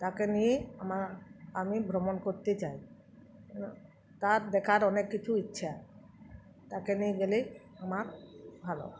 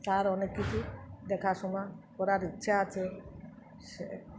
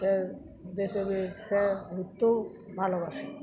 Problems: continuous background conversations